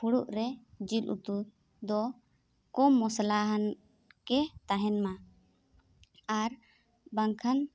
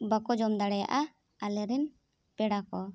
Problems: none marked